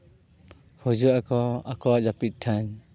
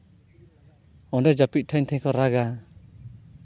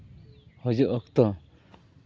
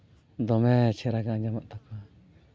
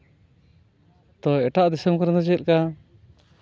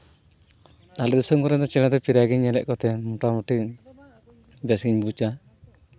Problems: none marked